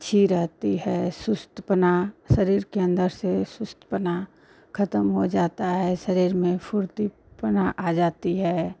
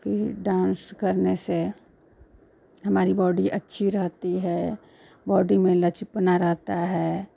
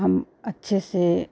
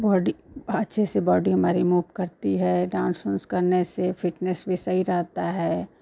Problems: constant background noise